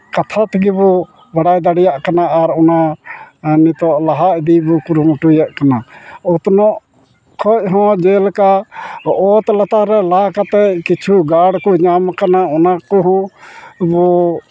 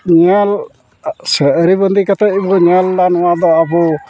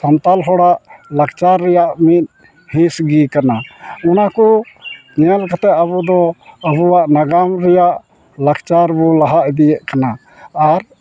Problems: constant background noise, background conversations at intervals